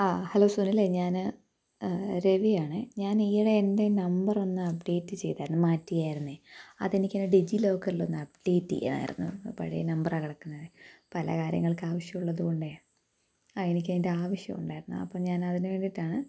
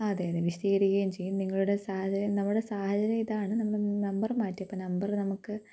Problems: low volume